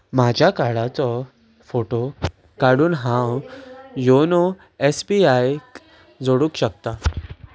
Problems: background sounds at intervals